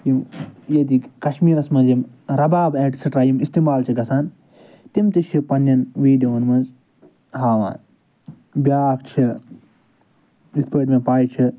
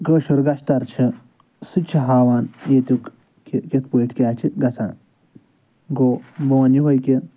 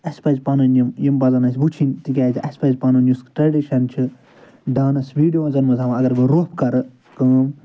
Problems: none marked